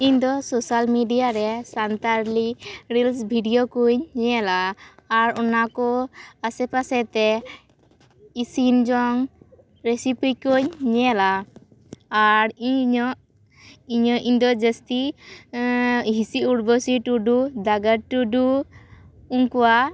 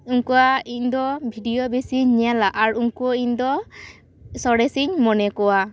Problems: none marked